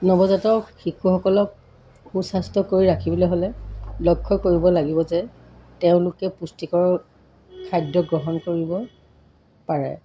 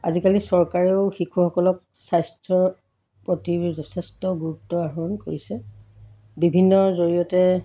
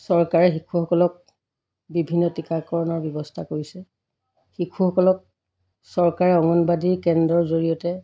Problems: none marked